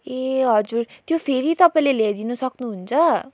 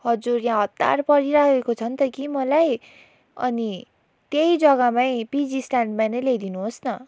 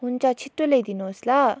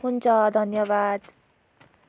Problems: background sounds at intervals